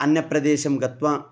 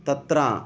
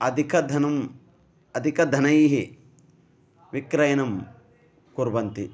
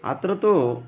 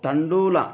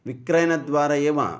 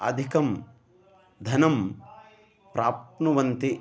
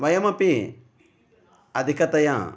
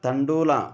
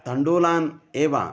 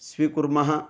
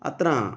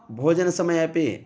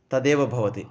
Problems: background sounds at intervals